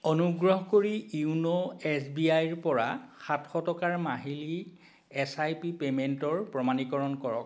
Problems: constant background noise